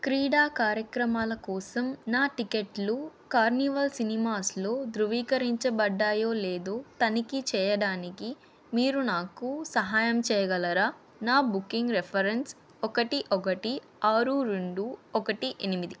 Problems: none marked